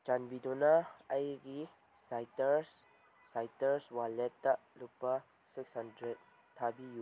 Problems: background sounds at intervals